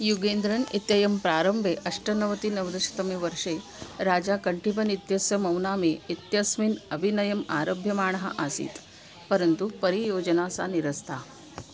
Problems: constant background noise